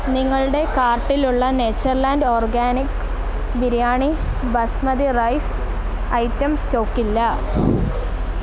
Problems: none marked